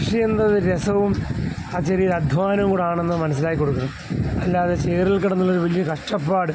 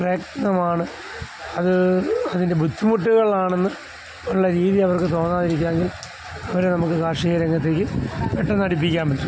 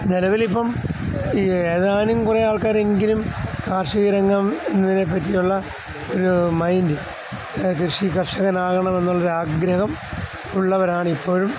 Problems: constant background noise